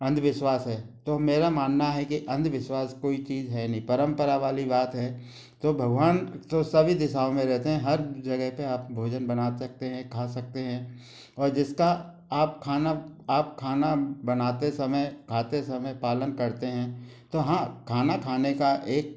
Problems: none marked